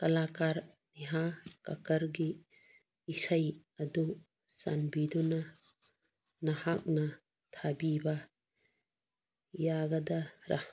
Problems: none marked